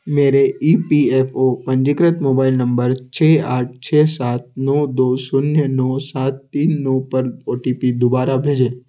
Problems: constant background noise